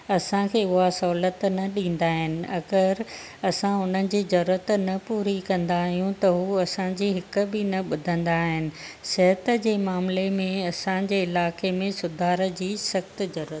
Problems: none marked